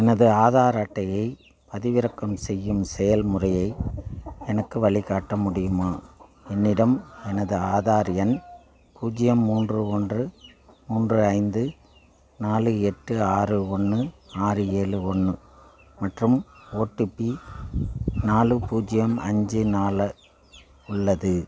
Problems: background sounds at intervals